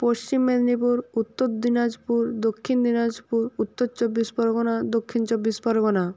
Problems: none marked